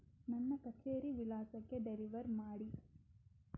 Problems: low volume